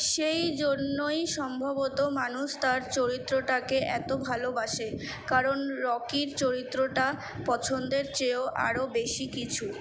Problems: constant background noise